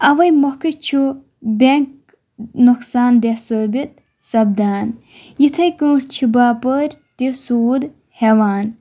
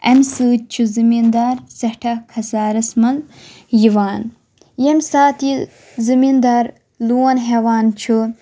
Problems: none marked